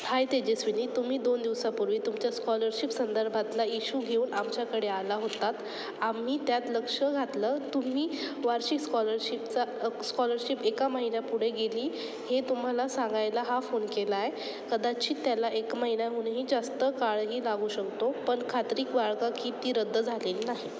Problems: none marked